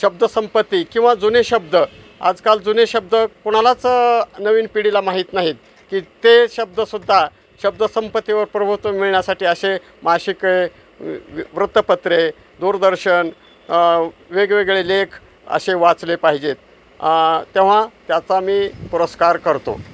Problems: constant background noise, background conversations at intervals